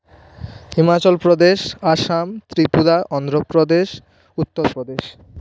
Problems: background sounds at intervals